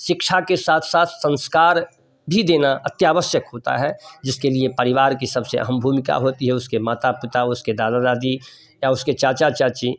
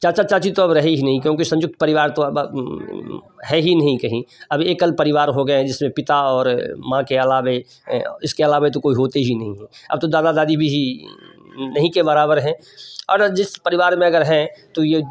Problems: background sounds at intervals